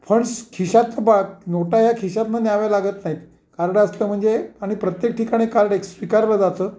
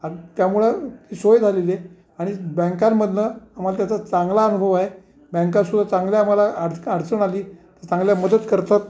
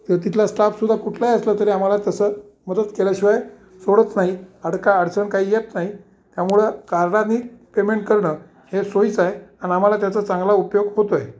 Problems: none marked